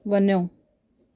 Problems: background sounds at intervals